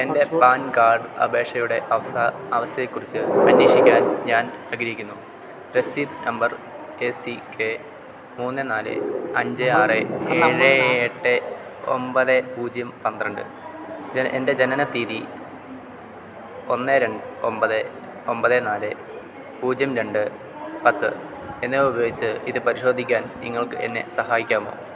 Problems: constant background noise